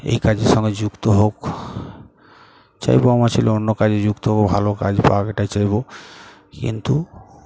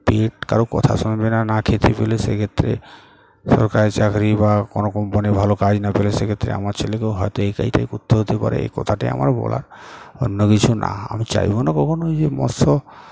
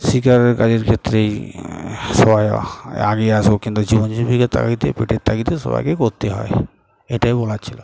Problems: none marked